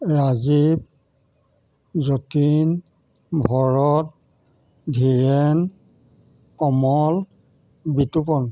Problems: none marked